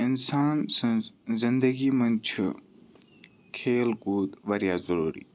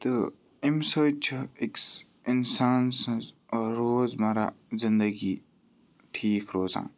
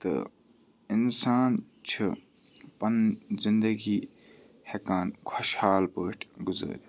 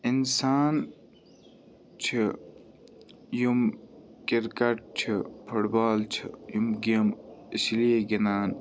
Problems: background sounds at intervals, background conversations at intervals